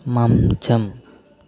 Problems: none marked